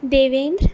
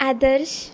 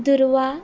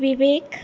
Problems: constant background noise